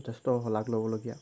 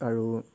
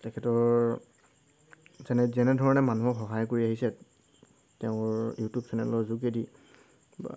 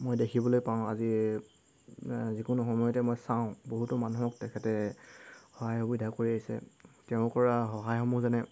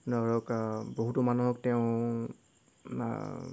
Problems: none marked